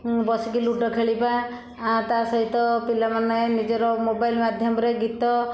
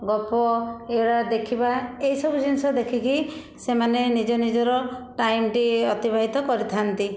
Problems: constant background noise